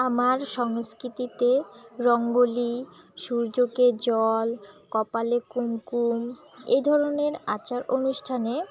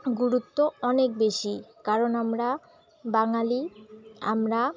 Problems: background sounds at intervals